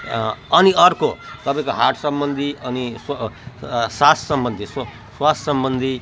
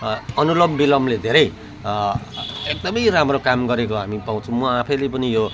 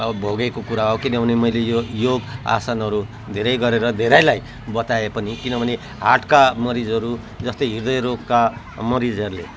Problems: constant background noise